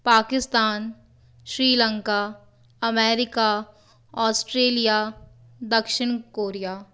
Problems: none marked